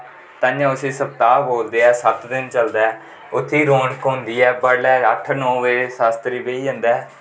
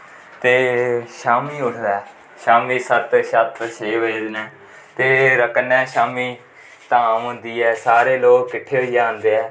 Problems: constant background noise, echo